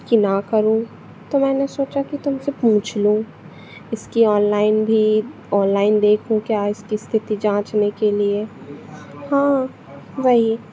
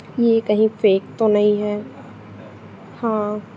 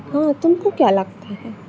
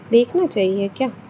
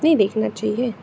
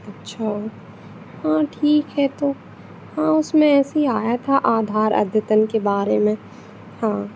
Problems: constant background noise